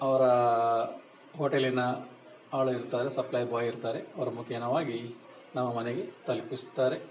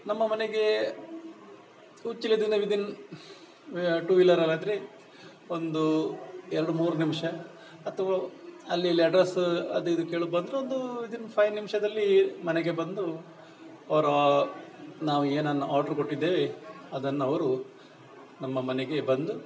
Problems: background conversations at intervals